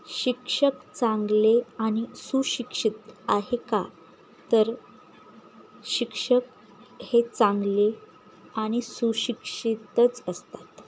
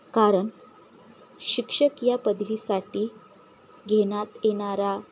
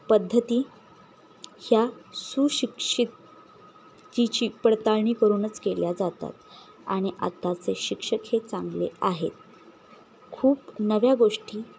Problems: none marked